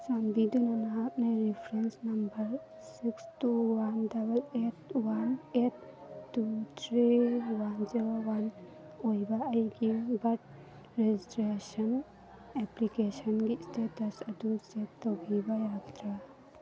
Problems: constant background noise